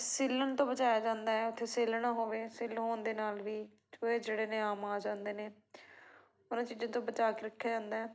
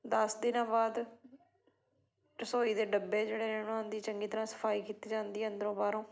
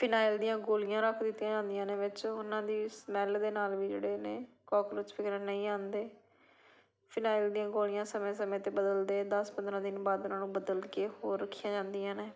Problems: continuous background conversations